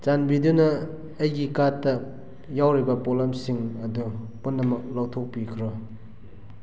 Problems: background sounds at intervals